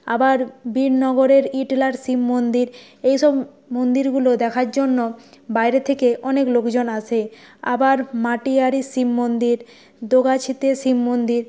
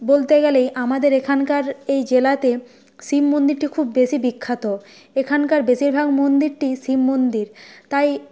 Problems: background sounds at intervals